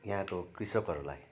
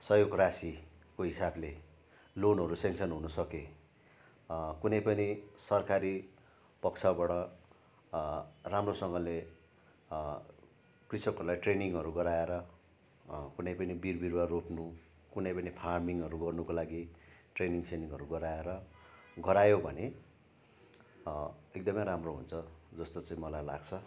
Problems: none marked